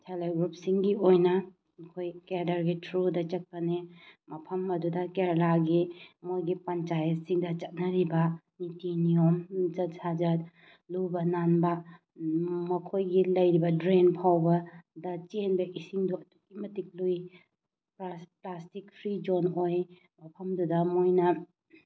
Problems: background sounds at intervals